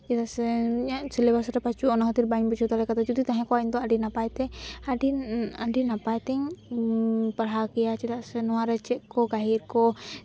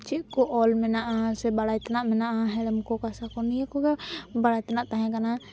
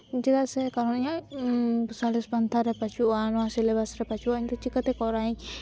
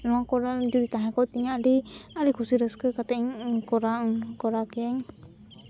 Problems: none marked